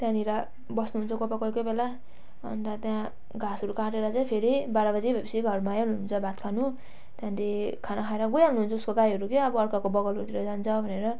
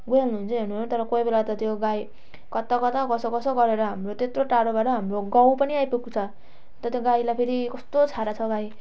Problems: none marked